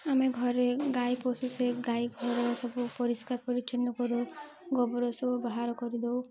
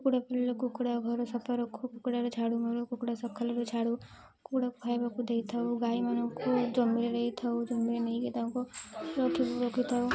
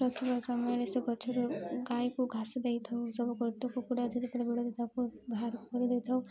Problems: background sounds at intervals, low volume